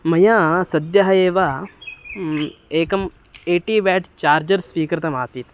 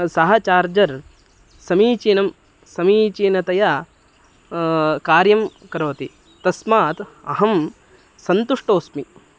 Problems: background sounds at intervals